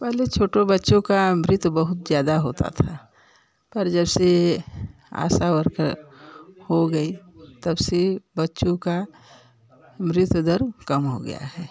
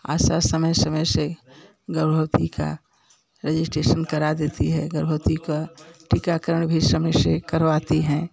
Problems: constant background noise